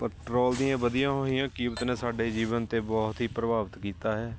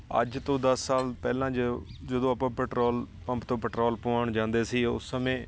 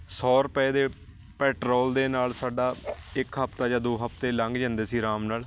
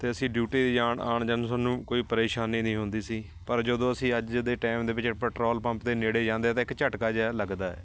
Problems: constant background noise